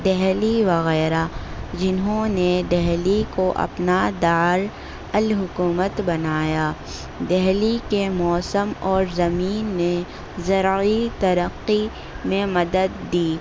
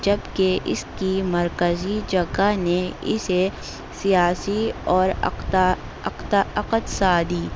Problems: constant background noise